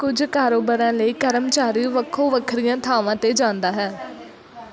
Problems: background sounds at intervals